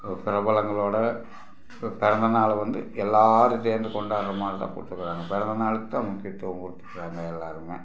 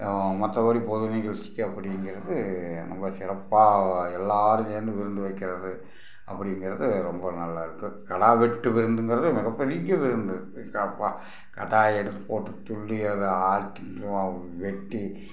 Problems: background sounds at intervals